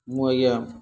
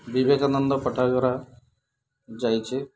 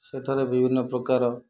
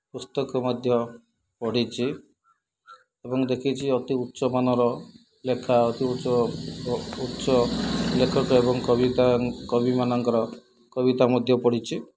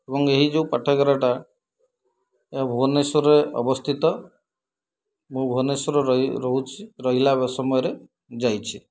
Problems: background sounds at intervals, low volume